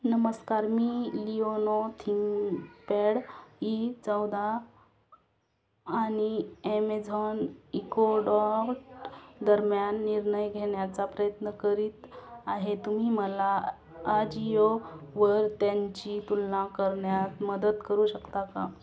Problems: constant background noise